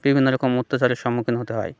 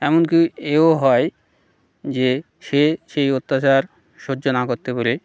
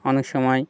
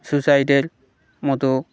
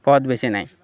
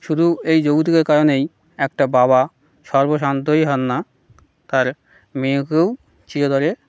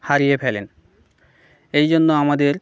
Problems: none marked